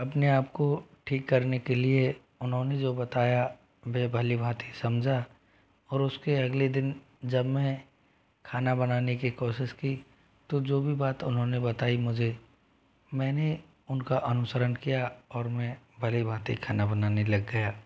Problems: none marked